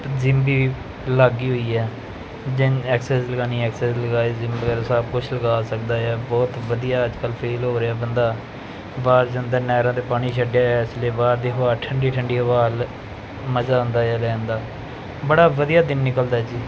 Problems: none marked